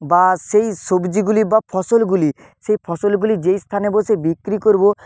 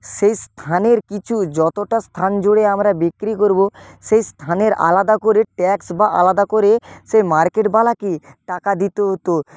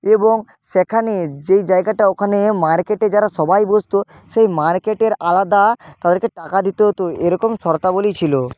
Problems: background sounds at intervals